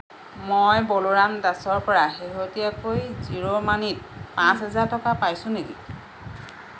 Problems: constant background noise